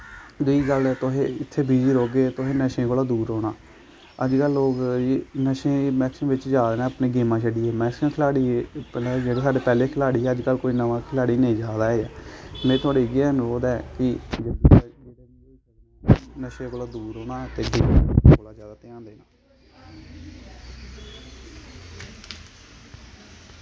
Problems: background sounds at intervals